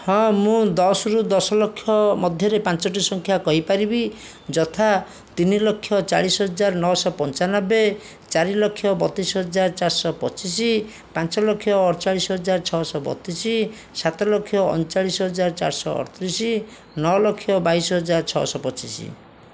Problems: none marked